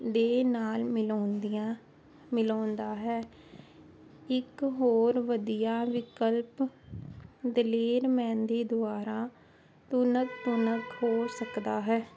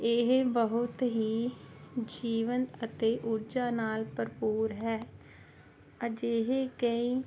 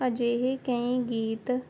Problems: constant background noise